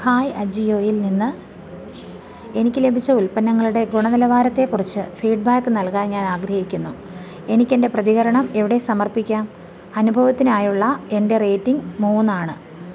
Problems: background sounds at intervals